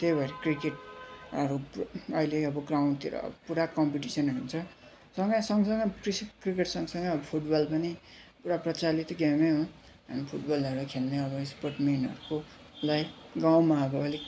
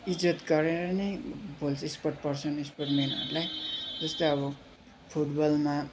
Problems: none marked